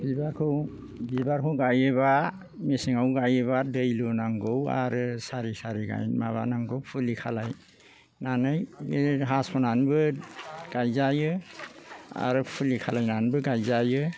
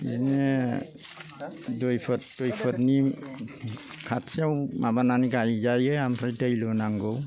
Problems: low volume